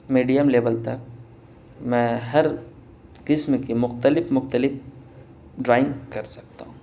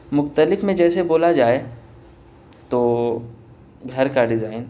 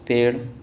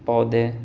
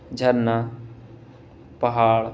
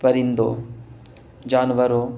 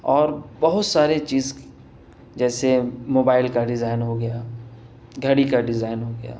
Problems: none marked